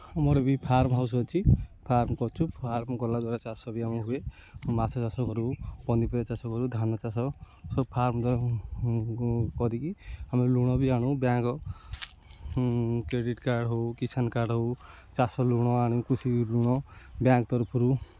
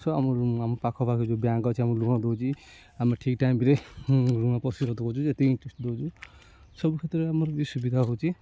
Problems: constant background noise